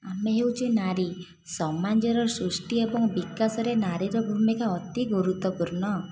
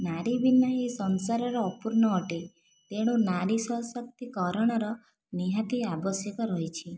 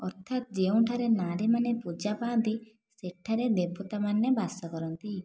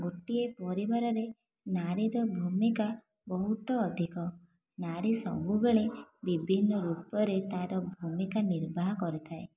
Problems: constant background noise